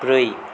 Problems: constant background noise